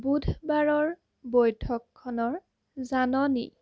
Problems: constant background noise